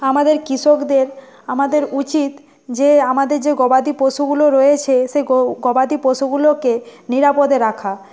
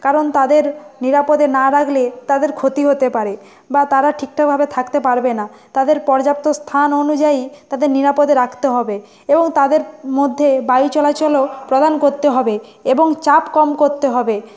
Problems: constant background noise, background conversations at intervals